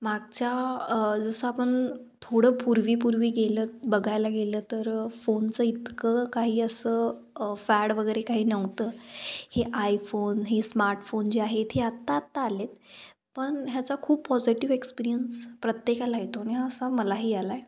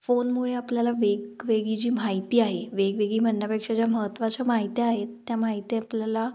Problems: none marked